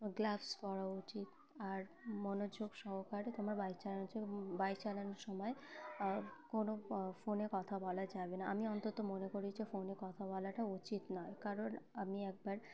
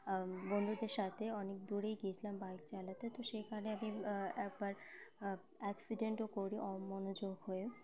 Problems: background sounds at intervals